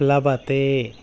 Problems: background sounds at intervals